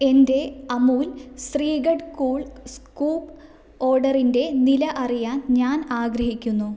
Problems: none marked